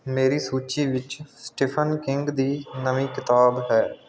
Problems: none marked